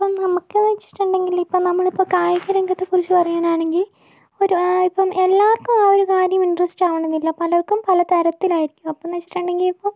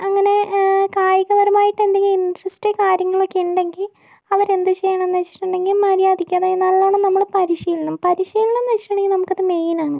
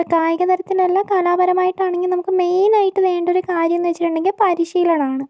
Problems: none marked